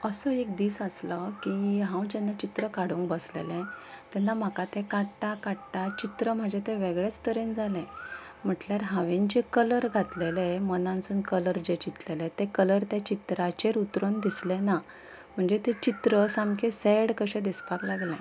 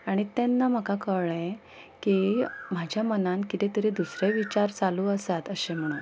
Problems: background sounds at intervals